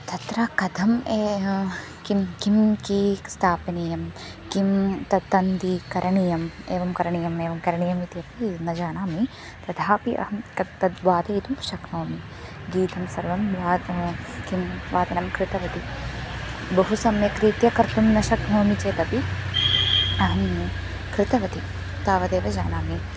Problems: constant background noise, continuous background conversations